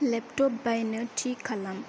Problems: low volume